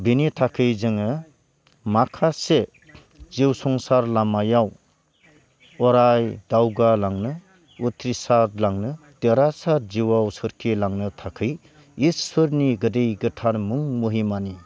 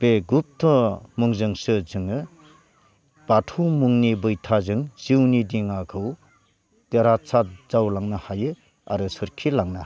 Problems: none marked